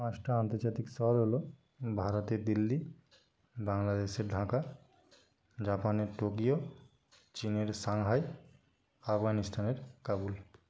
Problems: none marked